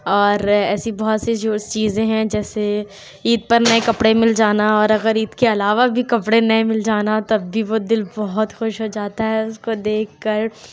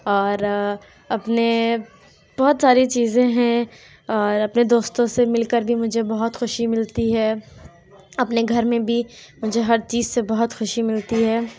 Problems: background sounds at intervals, background conversations at intervals